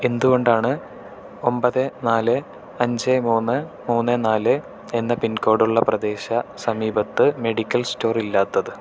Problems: none marked